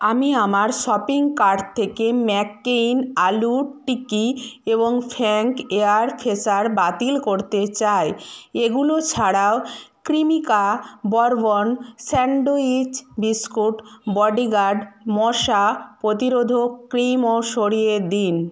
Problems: background sounds at intervals